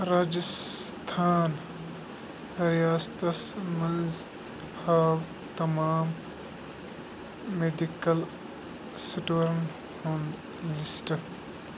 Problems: constant background noise